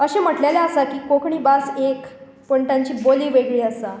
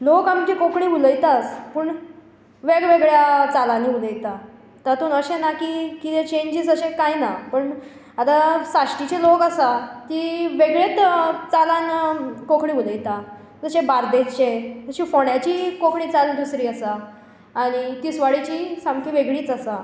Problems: echo